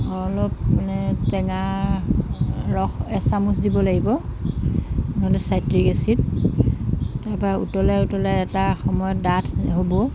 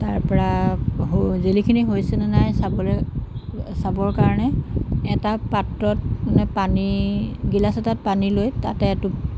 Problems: constant background noise